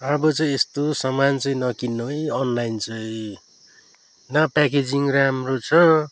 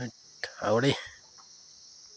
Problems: background sounds at intervals